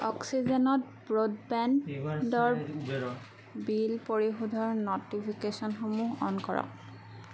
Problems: background sounds at intervals, background conversations at intervals